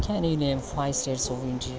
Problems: none marked